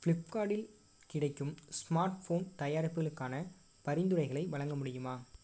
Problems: low volume